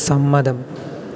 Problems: none marked